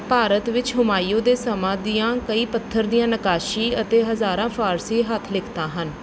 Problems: none marked